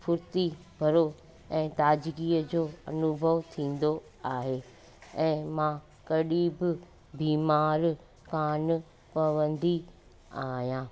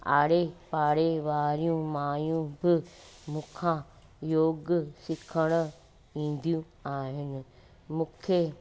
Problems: constant background noise